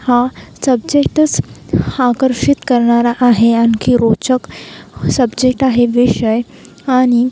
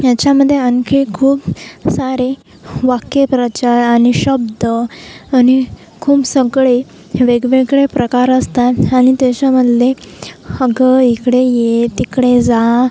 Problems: constant background noise